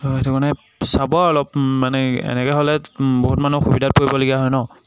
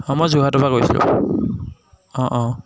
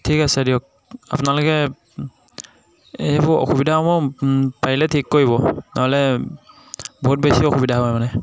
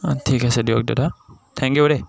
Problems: none marked